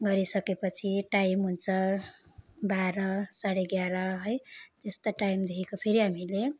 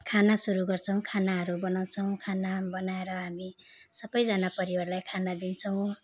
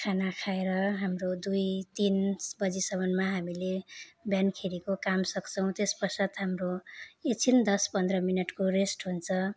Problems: background sounds at intervals